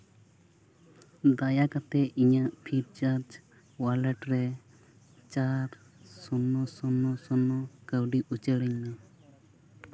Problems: background sounds at intervals